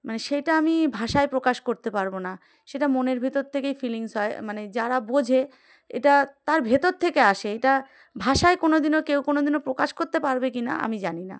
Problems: background sounds at intervals